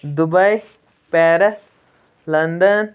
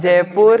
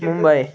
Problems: background sounds at intervals, background conversations at intervals